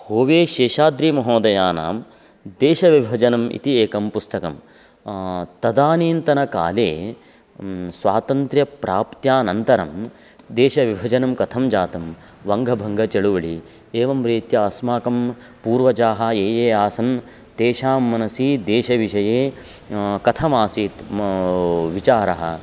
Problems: constant background noise